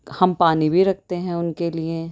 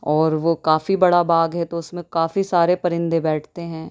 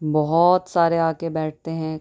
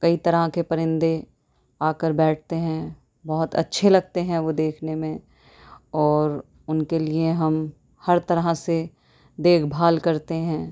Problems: none marked